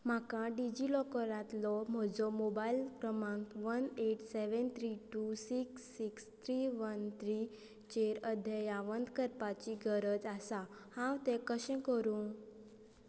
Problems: none marked